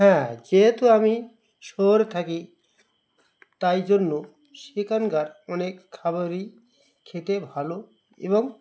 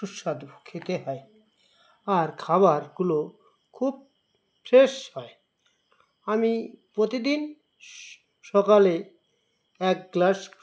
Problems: constant background noise